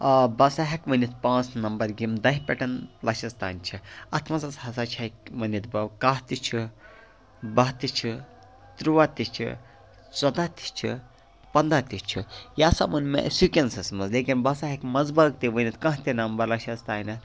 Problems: constant background noise, background conversations at intervals